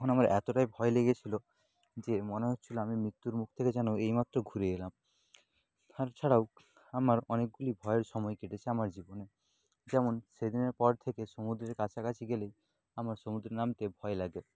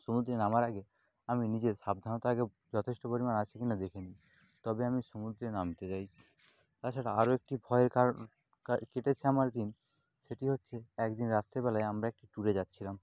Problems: background sounds at intervals